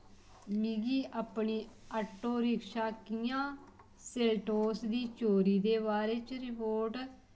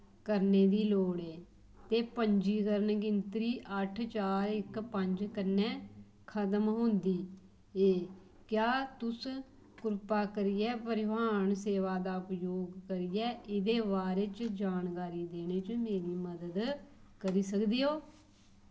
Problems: low volume